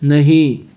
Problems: constant background noise